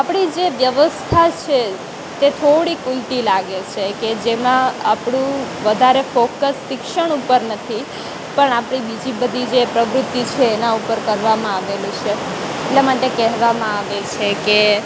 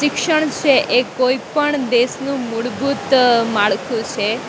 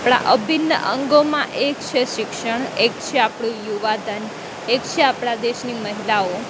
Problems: constant background noise